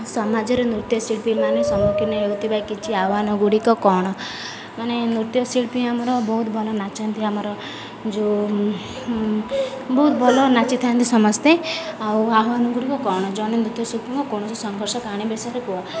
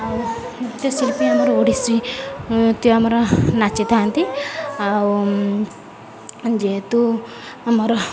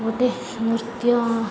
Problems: constant background noise, continuous background conversations